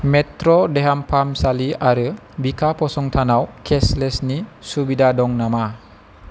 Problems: constant background noise